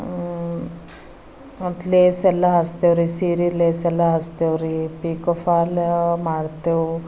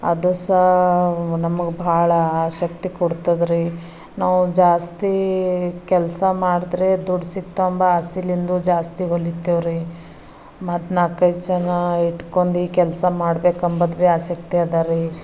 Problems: background sounds at intervals